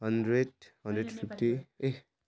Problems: none marked